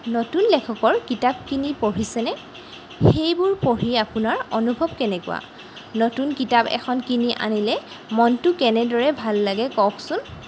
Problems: none marked